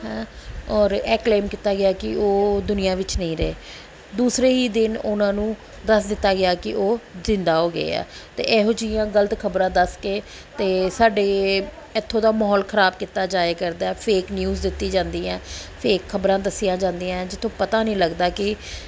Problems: background sounds at intervals, background conversations at intervals